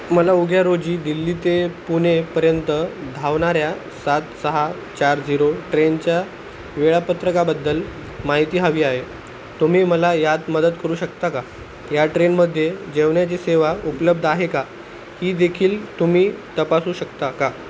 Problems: constant background noise